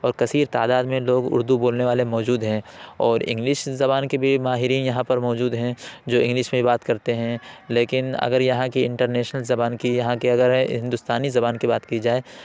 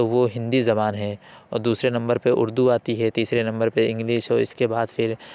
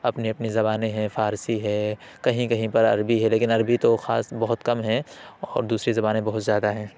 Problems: background sounds at intervals, background conversations at intervals